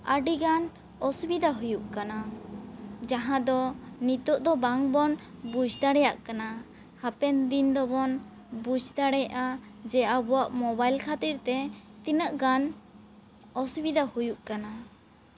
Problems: background sounds at intervals